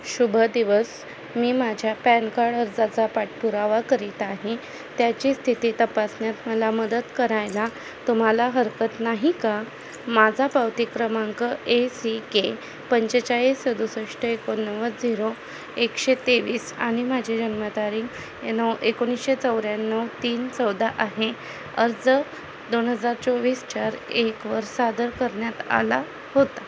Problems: none marked